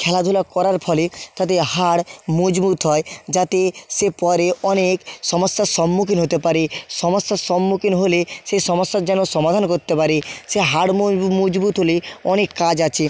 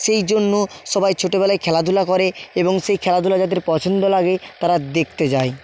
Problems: constant background noise